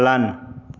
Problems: background conversations at intervals